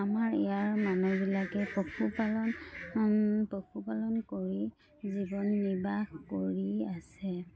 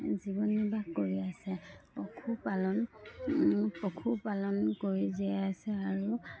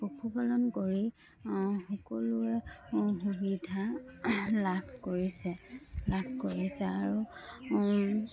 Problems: none marked